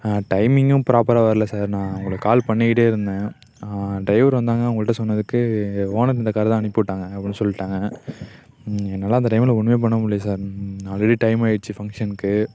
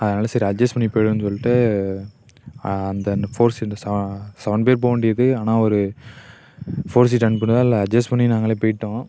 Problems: constant background noise